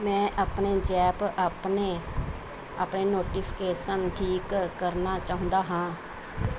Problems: none marked